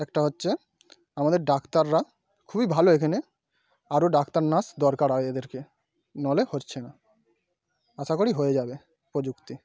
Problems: none marked